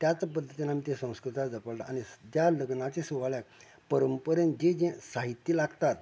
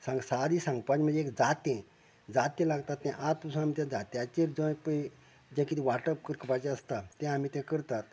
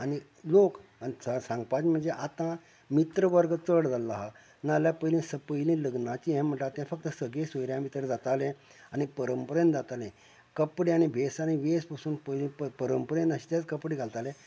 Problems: none marked